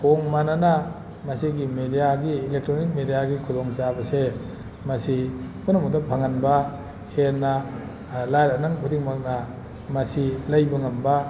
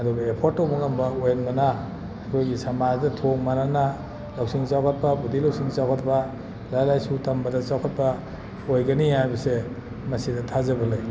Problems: none marked